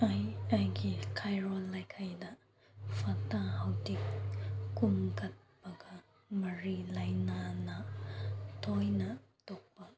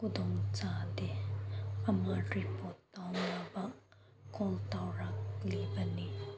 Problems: background sounds at intervals